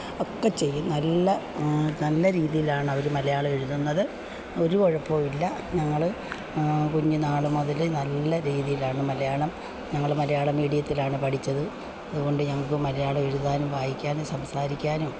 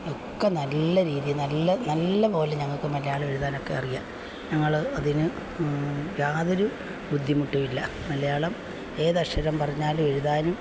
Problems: constant background noise, low volume